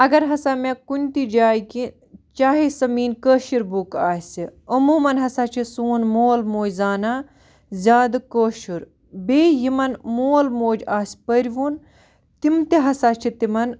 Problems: background sounds at intervals